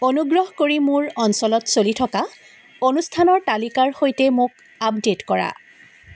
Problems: background sounds at intervals